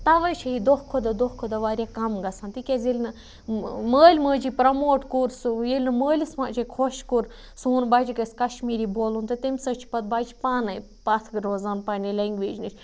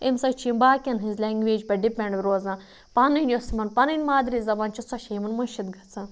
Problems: none marked